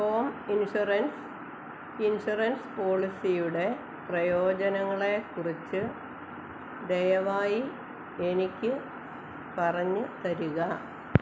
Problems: none marked